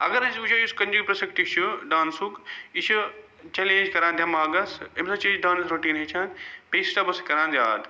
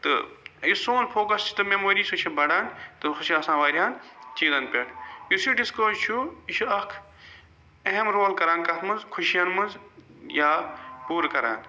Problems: background sounds at intervals